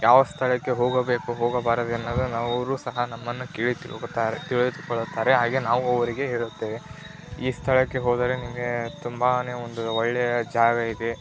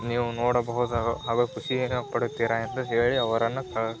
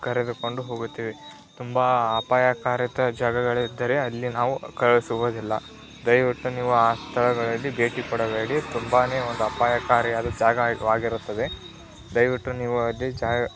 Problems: constant background noise